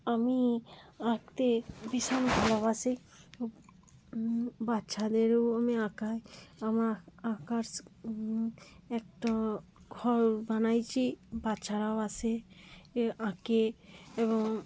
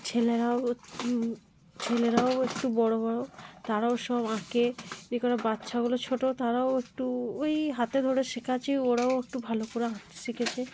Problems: background conversations at intervals